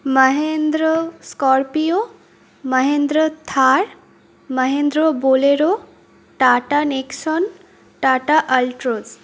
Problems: background sounds at intervals